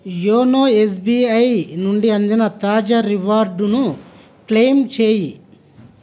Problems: none marked